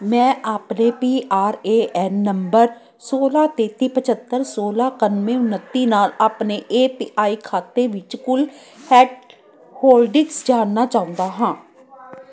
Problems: constant background noise, continuous background conversations